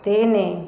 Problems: none marked